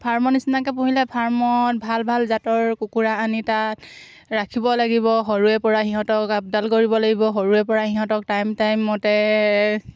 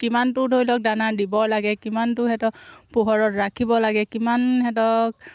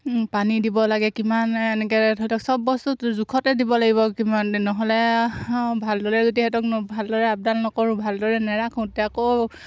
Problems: background sounds at intervals